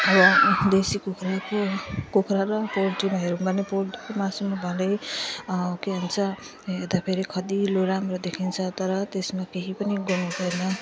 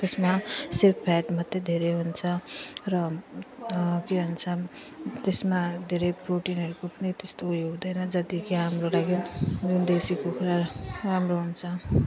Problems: none marked